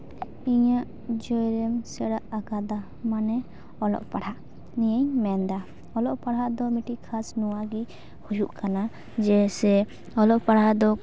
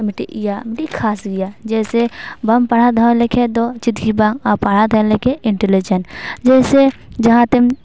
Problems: background sounds at intervals